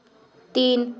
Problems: background sounds at intervals